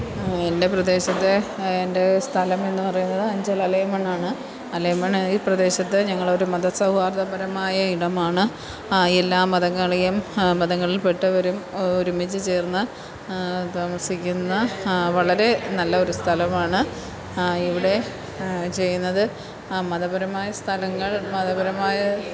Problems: low volume